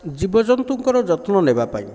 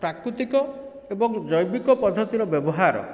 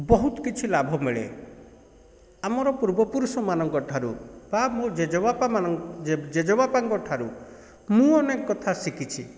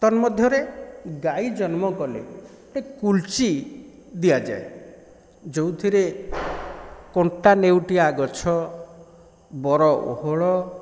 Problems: background sounds at intervals